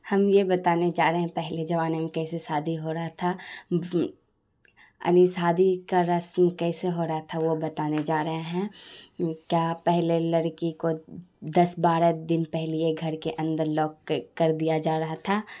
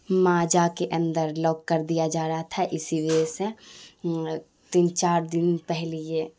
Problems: none marked